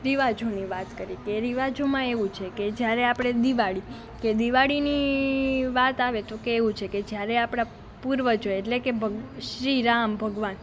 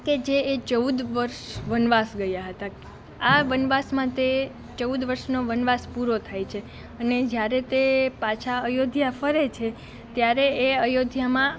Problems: constant background noise